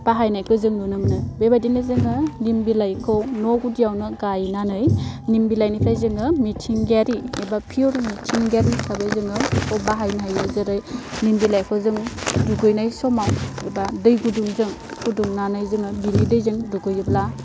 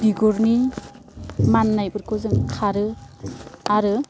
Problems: constant background noise